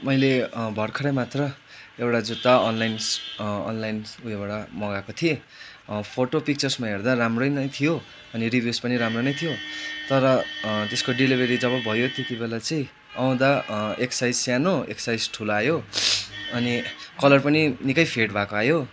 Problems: constant background noise